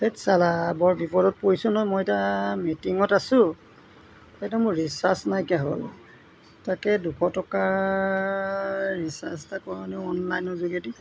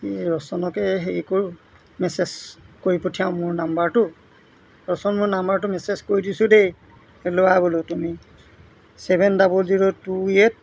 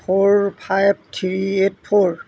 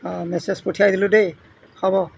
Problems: none marked